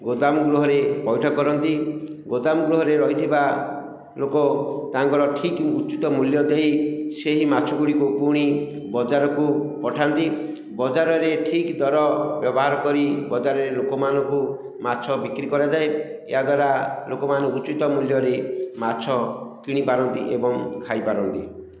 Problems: echo